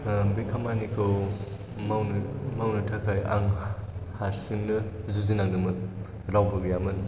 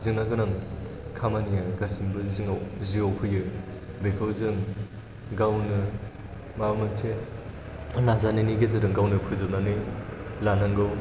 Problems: background sounds at intervals